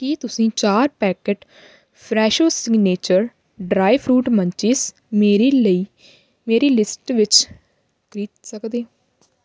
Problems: none marked